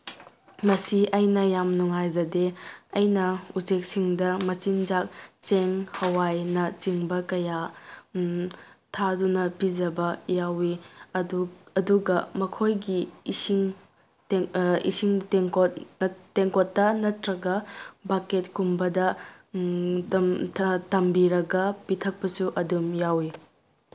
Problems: none marked